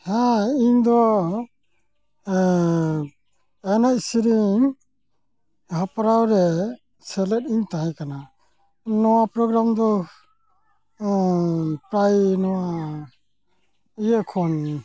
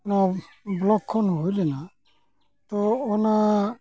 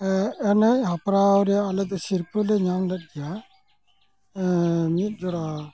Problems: constant background noise